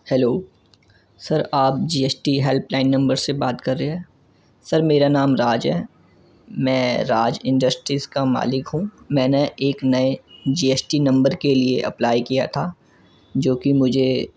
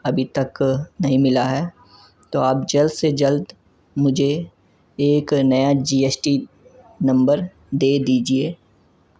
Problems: none marked